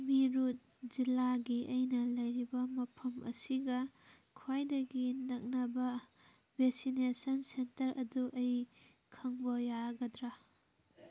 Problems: background sounds at intervals, background conversations at intervals